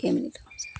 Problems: constant background noise